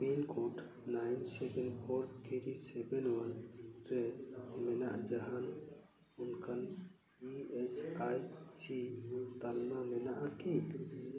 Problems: continuous background conversations